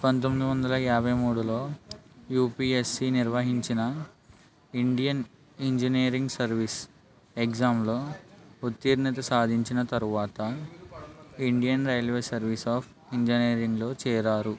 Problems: none marked